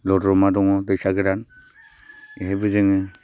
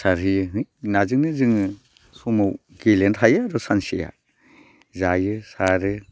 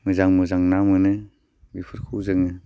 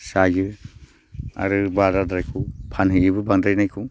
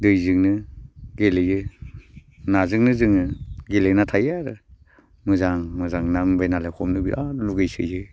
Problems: constant background noise